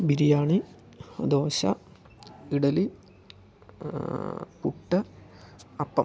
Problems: low volume